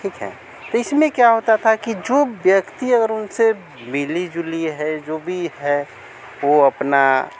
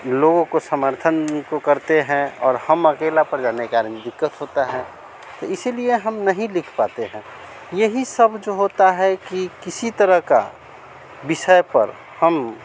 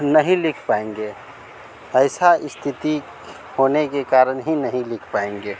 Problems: none marked